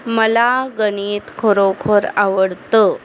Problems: constant background noise